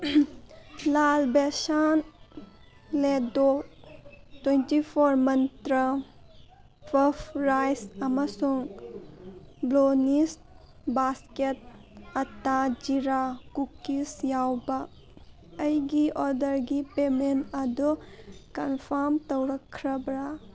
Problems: background sounds at intervals, background conversations at intervals